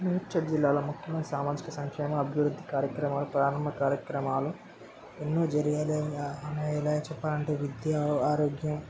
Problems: constant background noise, background conversations at intervals